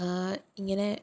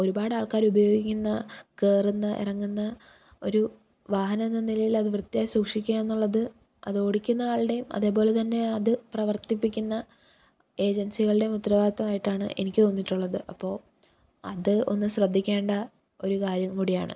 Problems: none marked